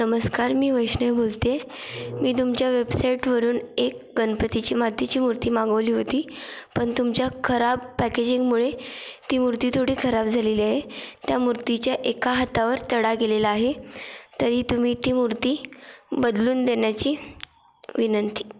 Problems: none marked